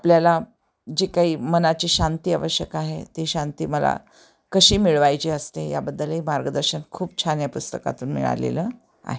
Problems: none marked